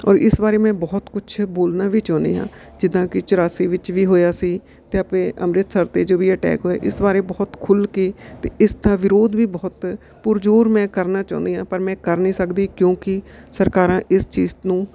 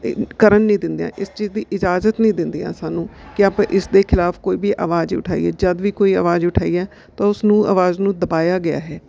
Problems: background sounds at intervals